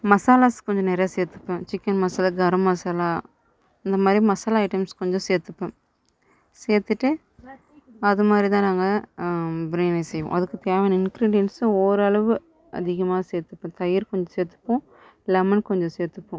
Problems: none marked